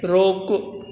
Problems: constant background noise